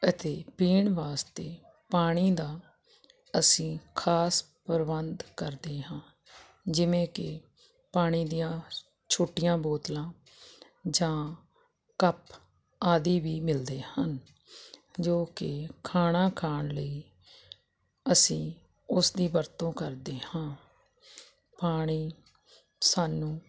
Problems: none marked